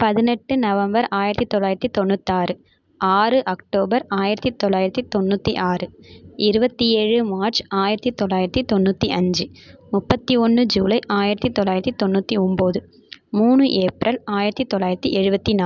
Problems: background sounds at intervals